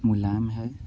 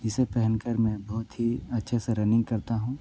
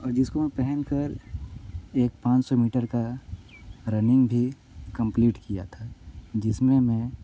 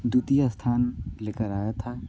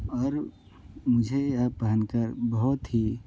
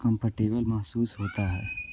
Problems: none marked